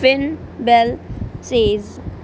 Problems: none marked